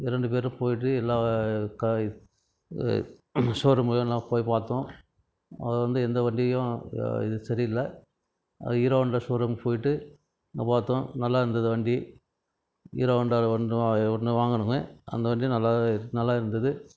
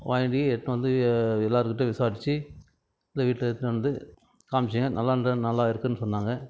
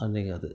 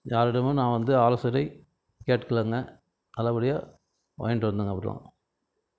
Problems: background conversations at intervals